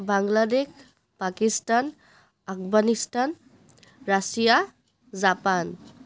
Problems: none marked